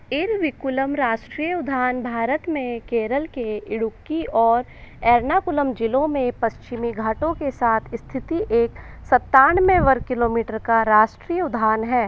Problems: constant background noise